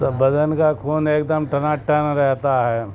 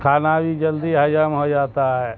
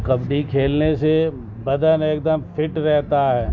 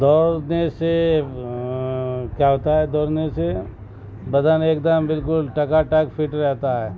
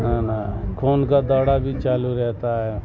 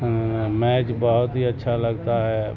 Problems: constant background noise